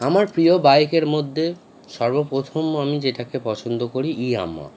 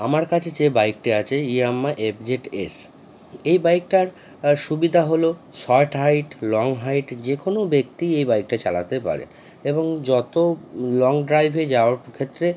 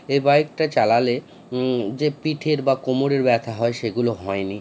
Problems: none marked